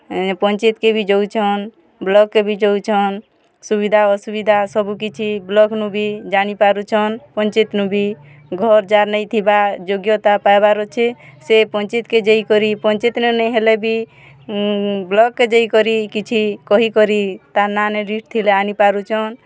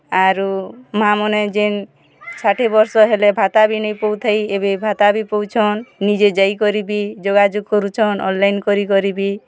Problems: constant background noise, continuous background conversations